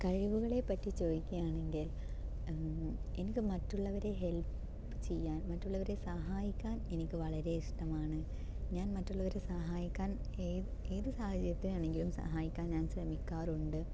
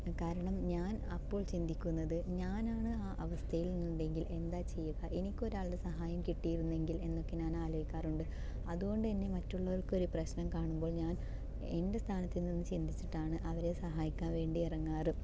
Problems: low volume